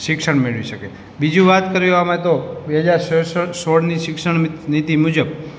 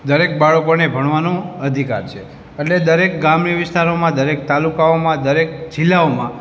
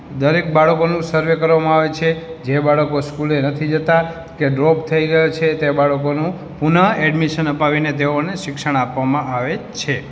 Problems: background sounds at intervals